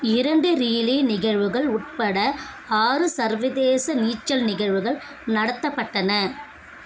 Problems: constant background noise, continuous background conversations